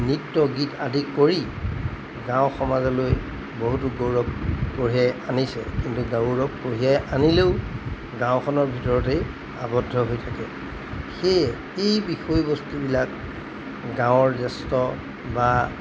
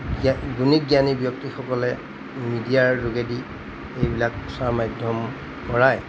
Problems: constant background noise